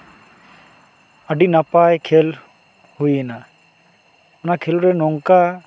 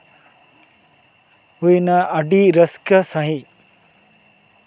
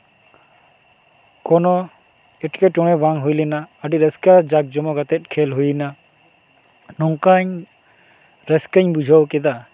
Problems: constant background noise, background conversations at intervals